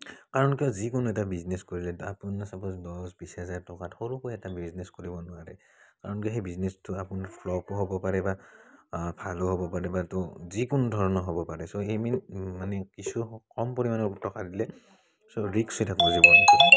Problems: background sounds at intervals